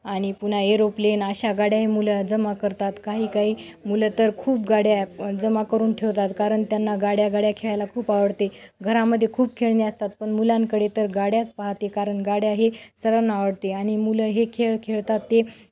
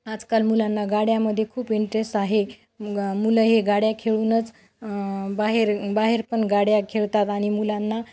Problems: background sounds at intervals